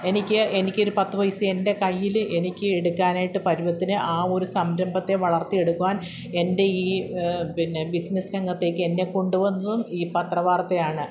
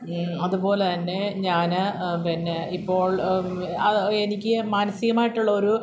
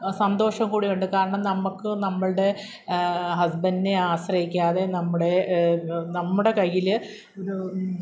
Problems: none marked